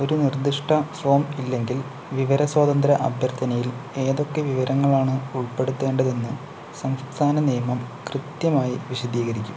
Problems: constant background noise